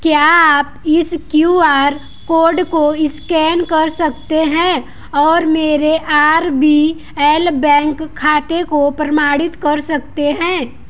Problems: none marked